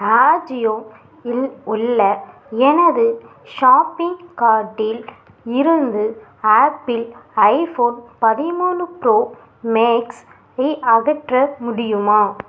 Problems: background sounds at intervals